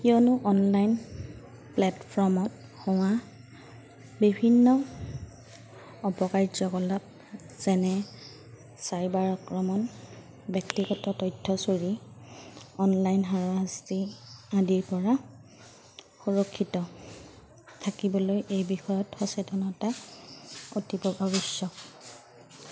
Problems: none marked